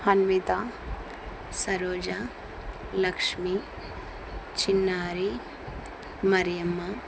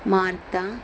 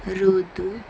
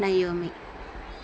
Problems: constant background noise